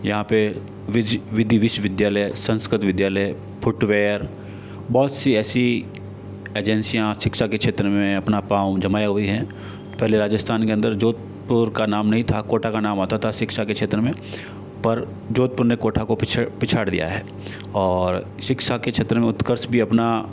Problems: none marked